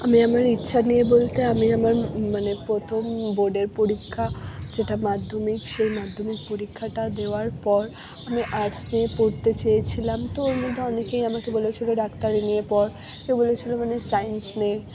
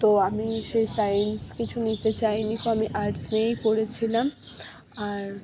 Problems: background sounds at intervals, background conversations at intervals